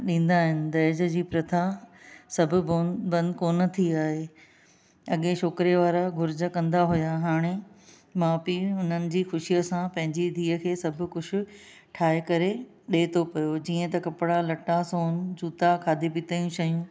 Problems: none marked